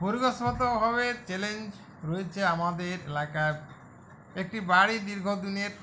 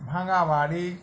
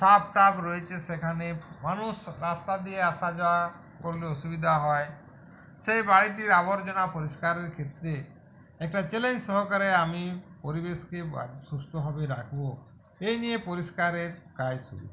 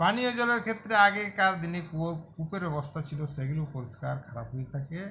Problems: background sounds at intervals